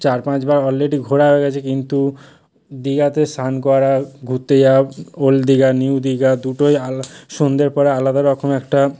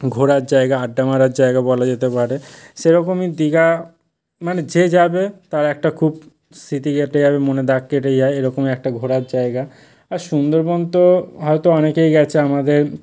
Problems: none marked